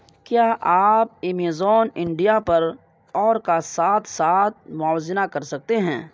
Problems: background sounds at intervals